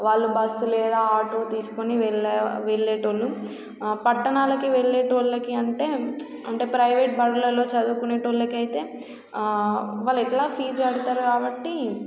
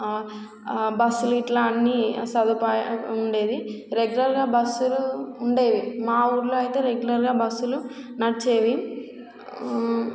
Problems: constant background noise